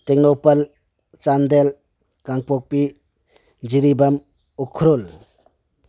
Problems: none marked